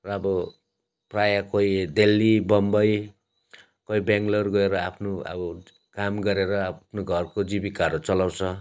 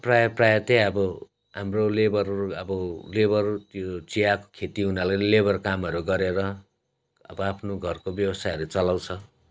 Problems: none marked